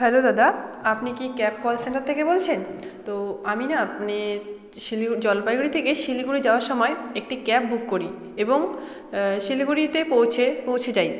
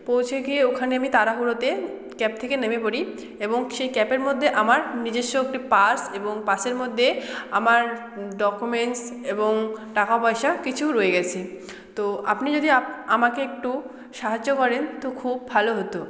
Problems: none marked